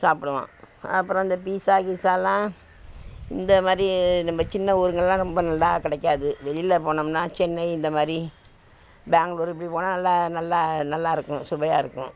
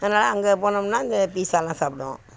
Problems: constant background noise